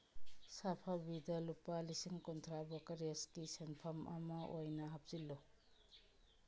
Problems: background sounds at intervals